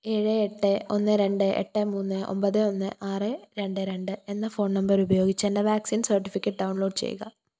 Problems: none marked